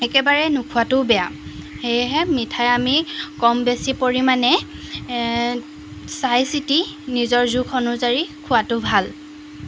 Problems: constant background noise